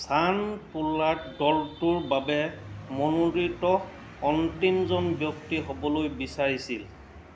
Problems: constant background noise